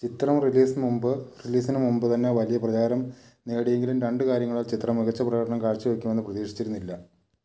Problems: low volume